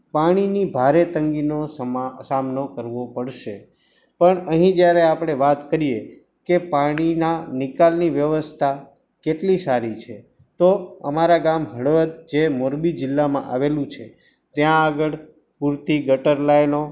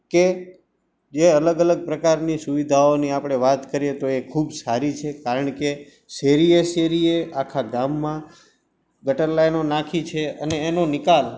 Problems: background sounds at intervals